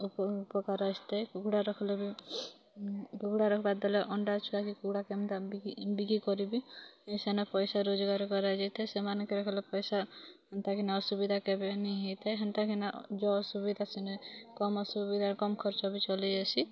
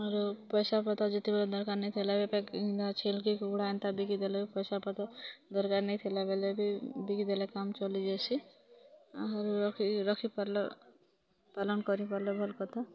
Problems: continuous background conversations